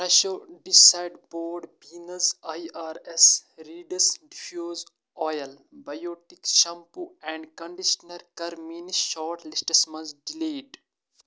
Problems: constant background noise